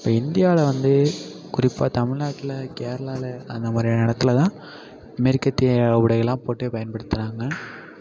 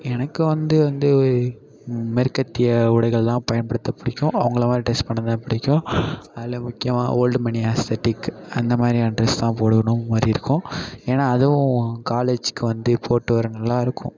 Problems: constant background noise